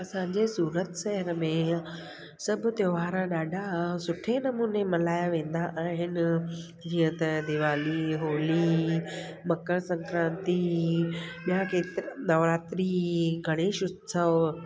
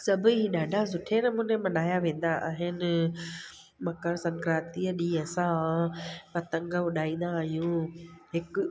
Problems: constant background noise